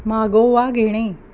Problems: background sounds at intervals